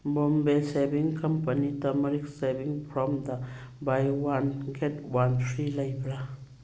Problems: background sounds at intervals